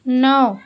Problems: none marked